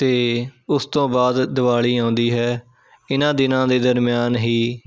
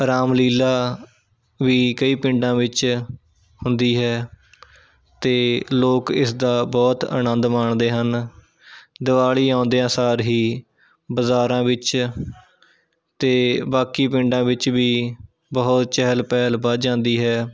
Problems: continuous background conversations